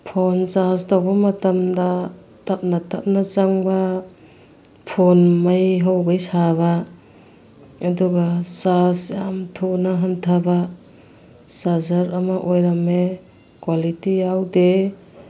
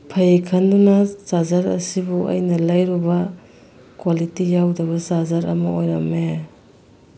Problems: constant background noise